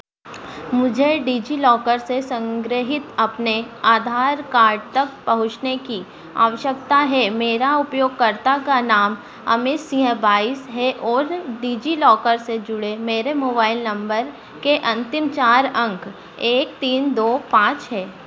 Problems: none marked